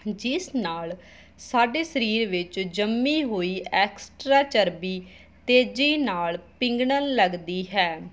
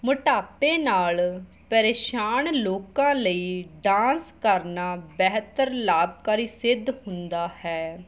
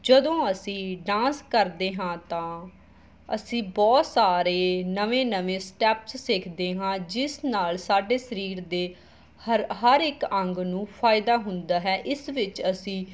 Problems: background sounds at intervals